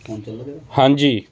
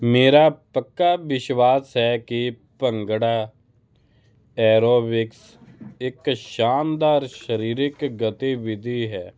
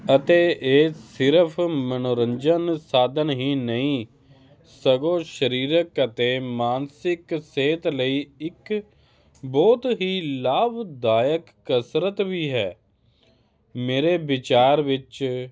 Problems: constant background noise